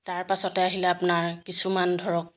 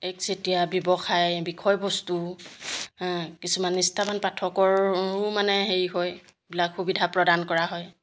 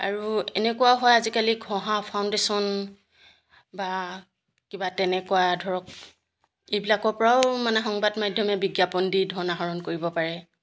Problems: none marked